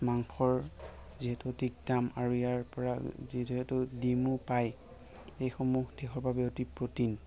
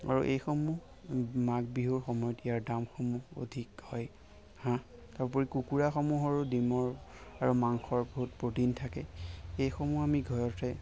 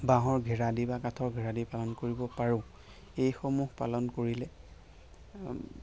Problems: constant background noise